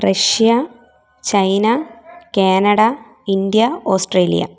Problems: background sounds at intervals